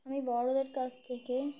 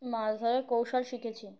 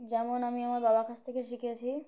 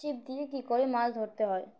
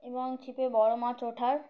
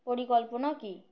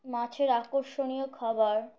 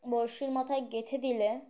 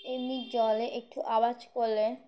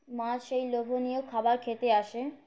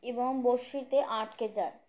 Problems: none marked